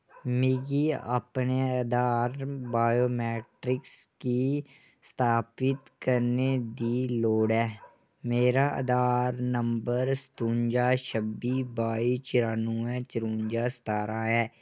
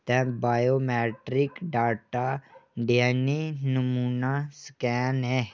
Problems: none marked